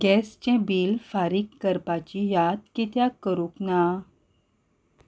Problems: none marked